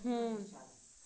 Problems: continuous background conversations